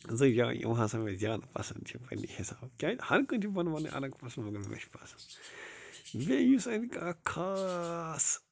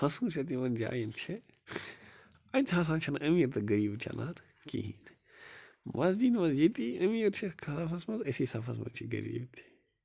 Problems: constant background noise